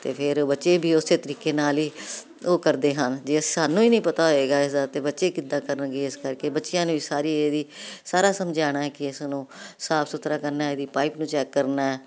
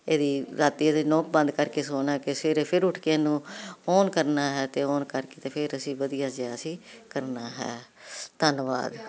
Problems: none marked